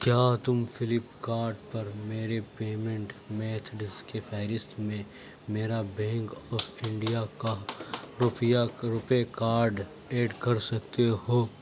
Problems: background sounds at intervals, low volume